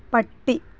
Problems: constant background noise